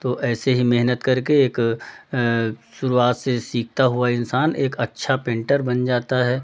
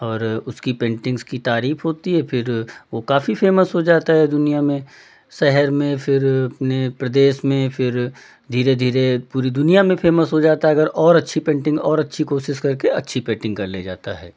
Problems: none marked